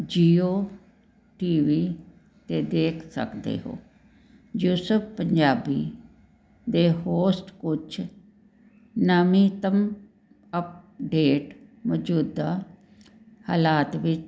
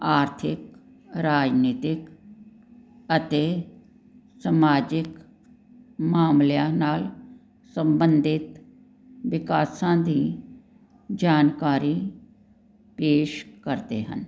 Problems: background sounds at intervals